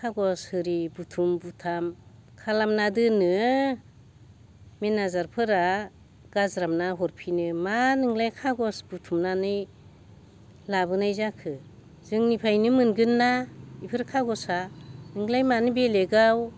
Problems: constant background noise